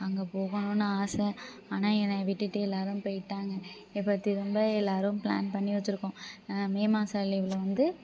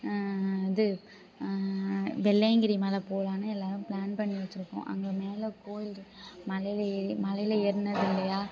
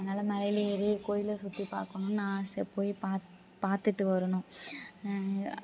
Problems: background sounds at intervals, background conversations at intervals